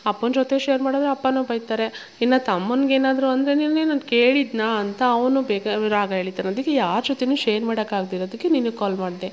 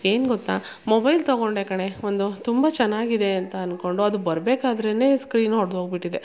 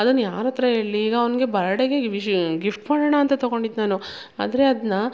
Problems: background sounds at intervals